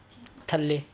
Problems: background sounds at intervals